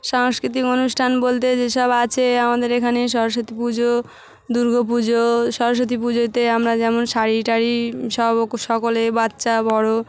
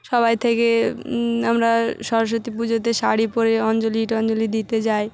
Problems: constant background noise, background conversations at intervals